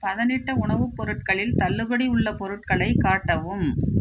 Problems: background sounds at intervals